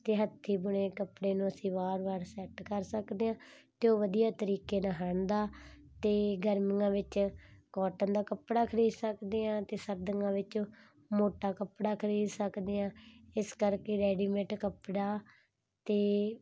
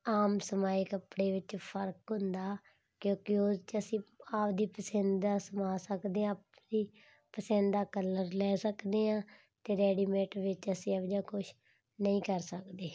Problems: none marked